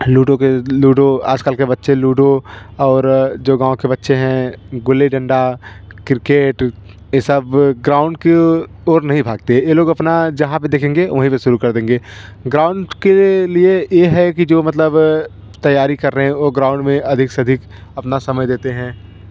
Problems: constant background noise